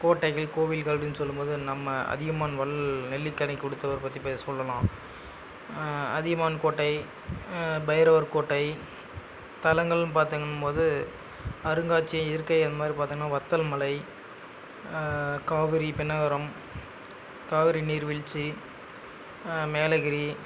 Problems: background sounds at intervals